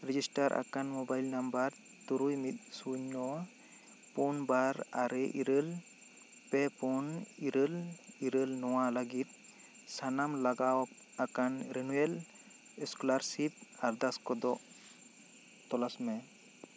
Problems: constant background noise